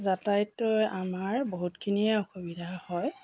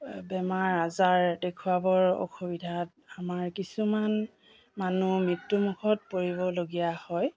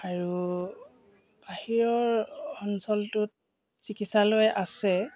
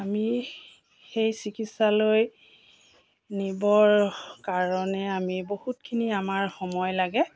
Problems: constant background noise